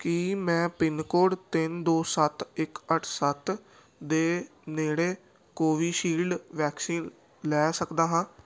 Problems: none marked